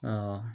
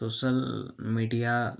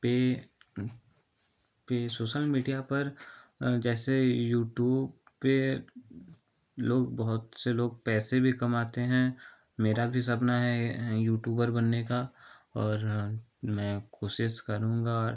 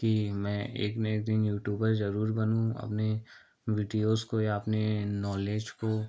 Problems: none marked